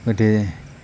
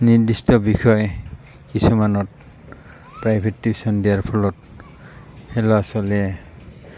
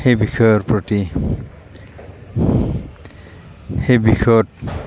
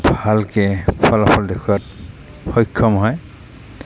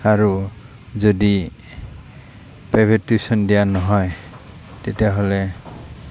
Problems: constant background noise